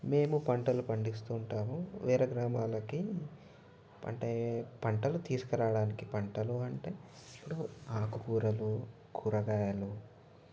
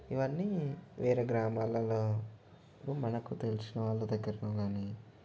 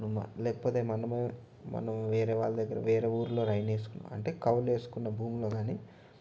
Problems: none marked